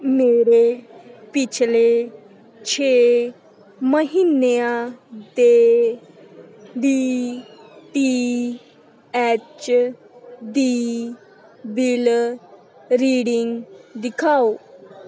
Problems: constant background noise, continuous background conversations